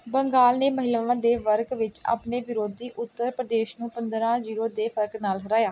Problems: background sounds at intervals